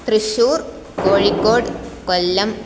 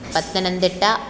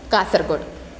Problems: none marked